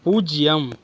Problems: constant background noise